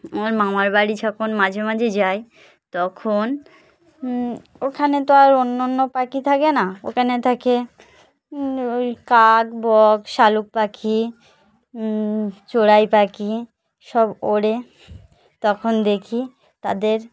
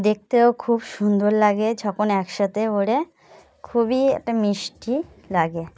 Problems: background sounds at intervals, continuous background conversations